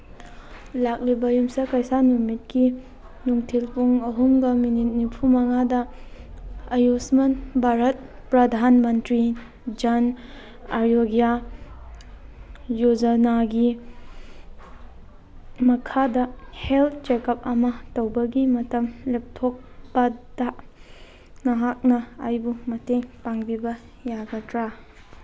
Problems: background sounds at intervals